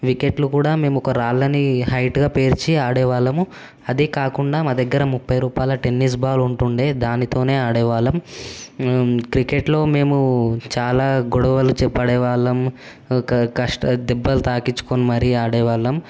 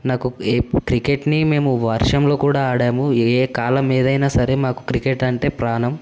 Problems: constant background noise